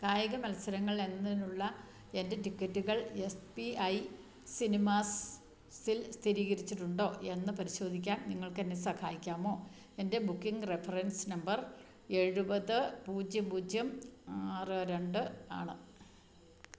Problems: none marked